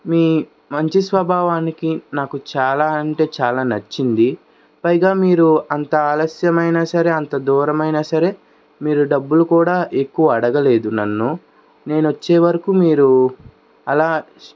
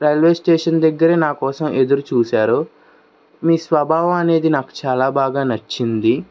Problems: background sounds at intervals